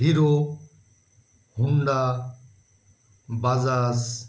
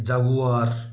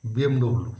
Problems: none marked